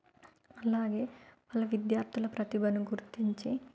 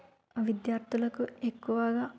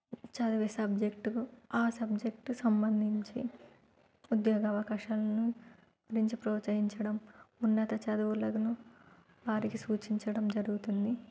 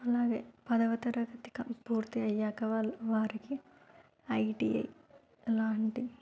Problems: low volume